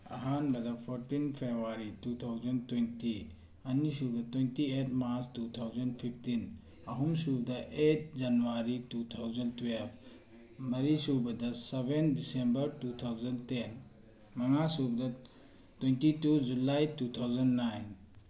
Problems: background conversations at intervals